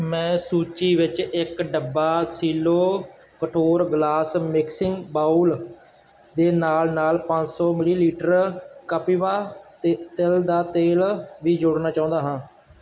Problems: constant background noise